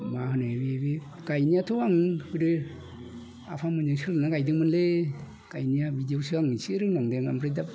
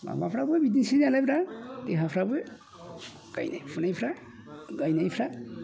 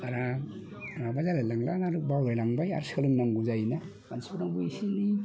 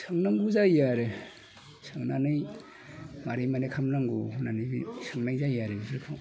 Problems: constant background noise